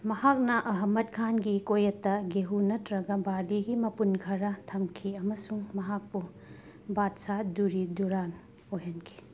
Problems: none marked